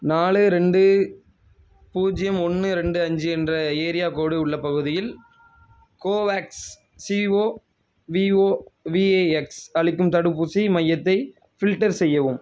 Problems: none marked